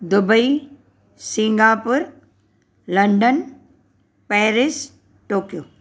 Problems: none marked